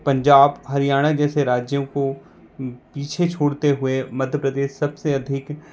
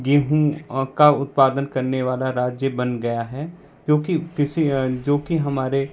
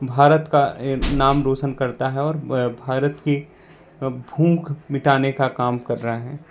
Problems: constant background noise